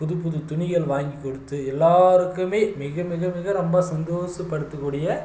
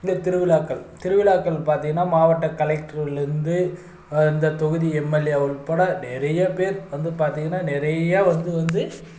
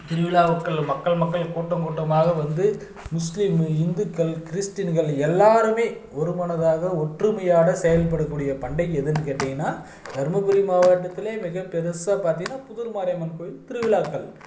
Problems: none marked